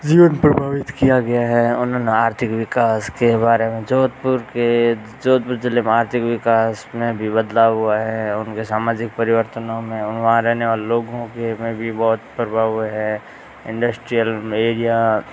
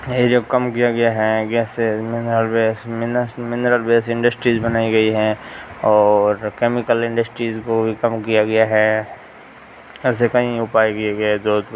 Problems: constant background noise